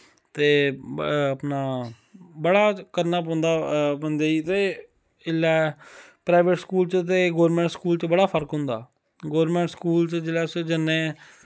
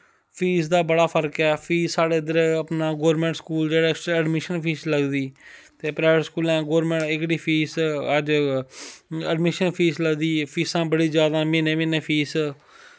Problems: none marked